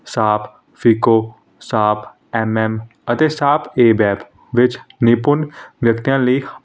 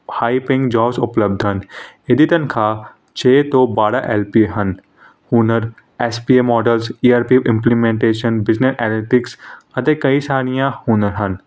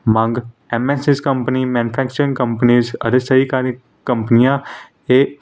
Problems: none marked